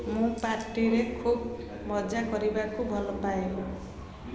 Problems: constant background noise, continuous background conversations